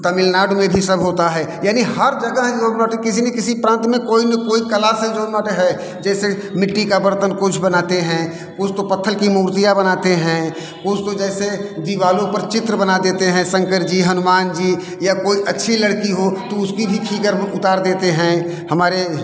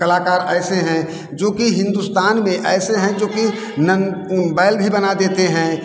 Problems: none marked